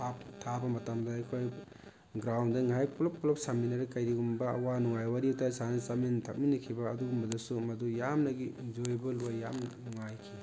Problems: constant background noise